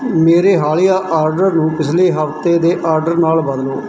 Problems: background sounds at intervals